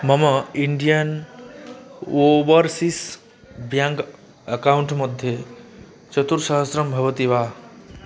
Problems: constant background noise, continuous background conversations